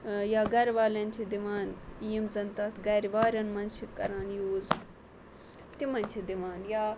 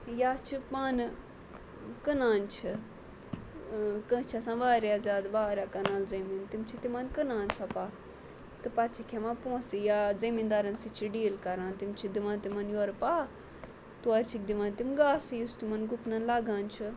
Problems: constant background noise, low volume